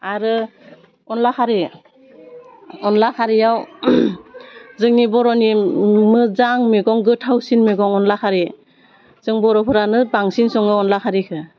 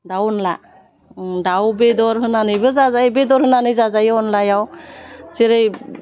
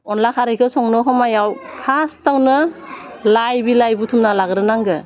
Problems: none marked